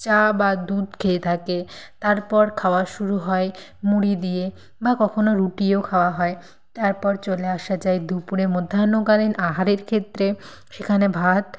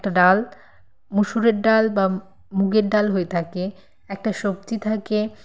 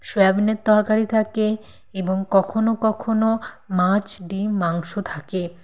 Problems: none marked